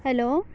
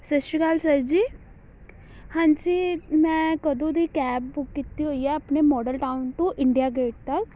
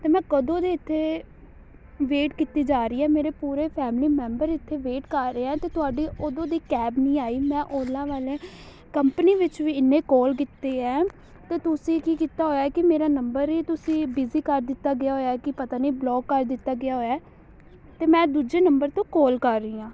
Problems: constant background noise